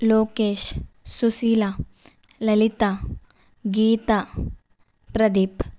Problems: none marked